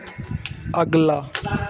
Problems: constant background noise